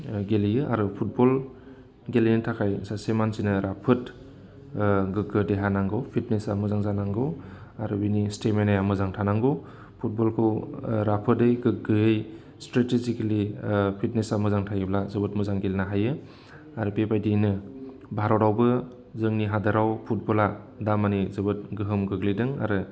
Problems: constant background noise